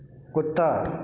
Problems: background sounds at intervals